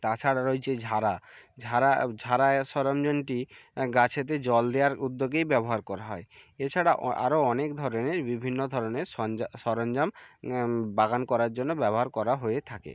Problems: background conversations at intervals